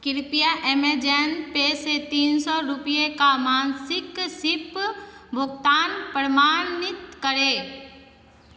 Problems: constant background noise, echo